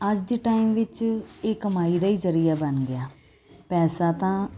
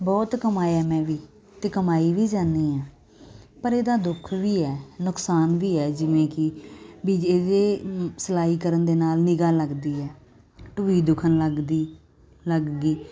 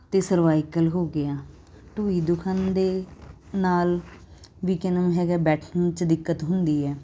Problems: constant background noise